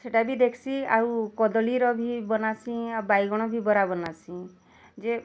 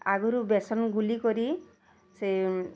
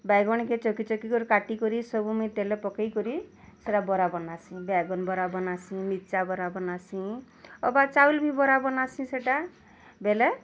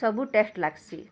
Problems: none marked